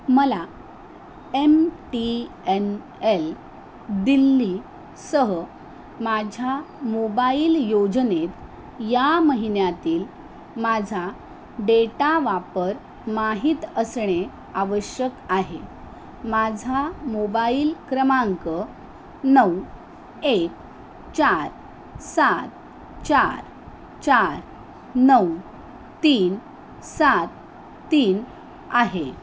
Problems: none marked